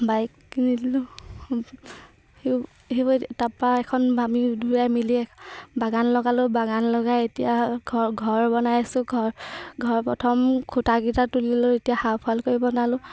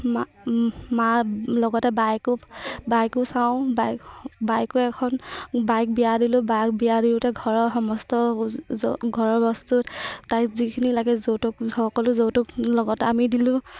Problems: constant background noise, background conversations at intervals